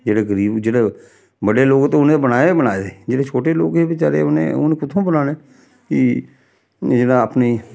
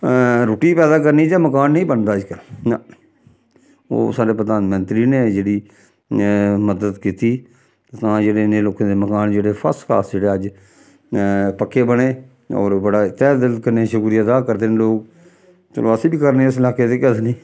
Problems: background sounds at intervals